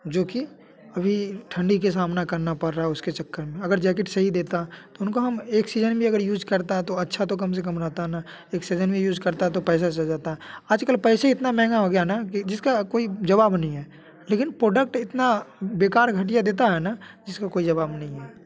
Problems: constant background noise